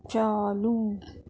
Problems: none marked